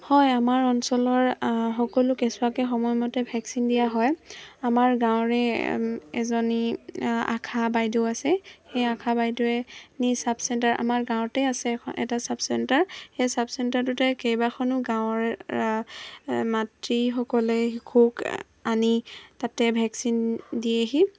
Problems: constant background noise